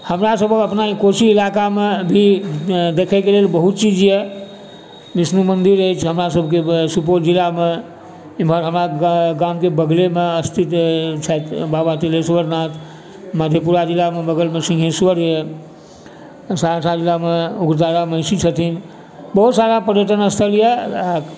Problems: constant background noise, background conversations at intervals